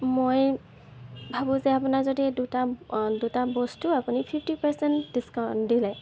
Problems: background sounds at intervals